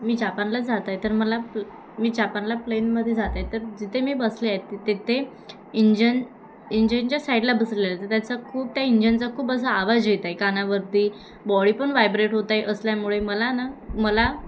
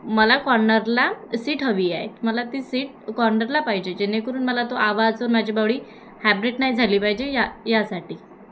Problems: constant background noise, background conversations at intervals